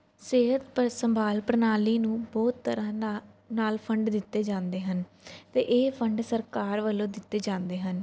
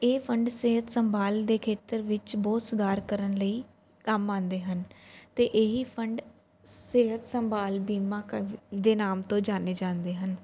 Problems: none marked